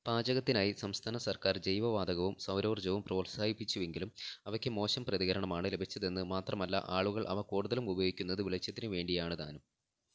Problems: low volume